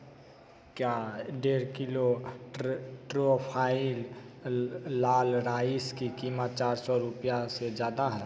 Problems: constant background noise, echo